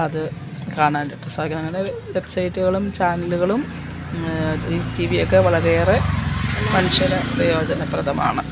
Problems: constant background noise